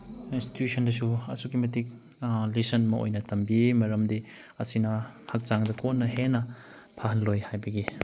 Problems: background sounds at intervals